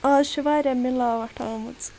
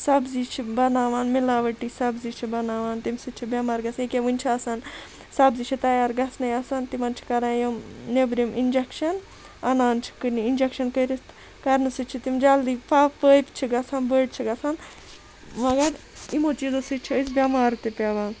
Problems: constant background noise